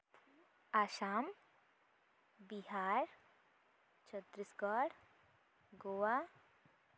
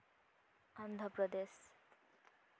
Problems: none marked